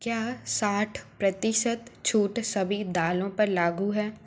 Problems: background sounds at intervals